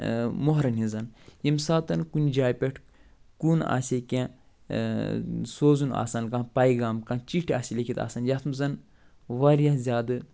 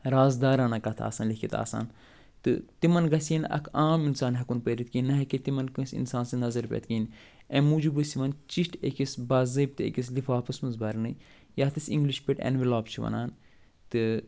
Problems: none marked